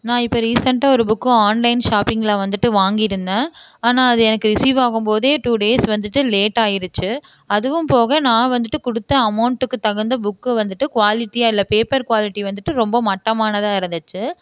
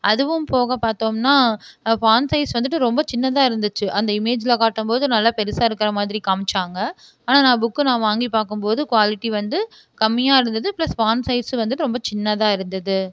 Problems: none marked